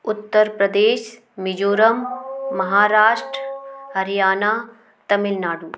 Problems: constant background noise, continuous background conversations